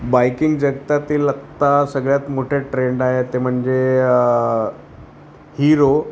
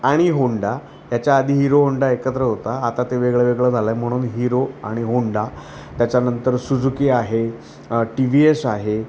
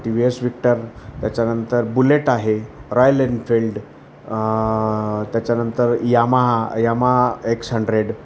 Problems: constant background noise